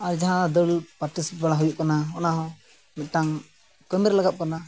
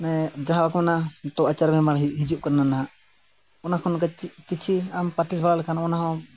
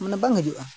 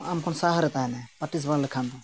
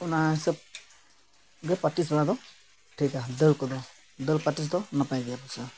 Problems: constant background noise